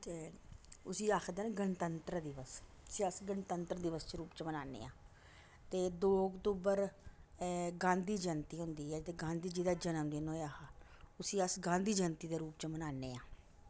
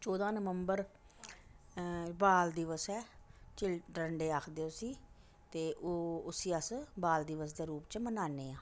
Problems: background sounds at intervals